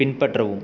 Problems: background conversations at intervals